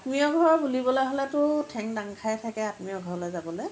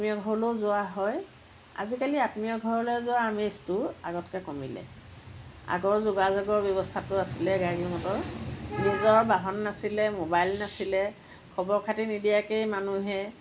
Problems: none marked